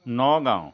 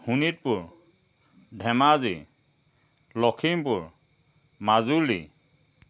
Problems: constant background noise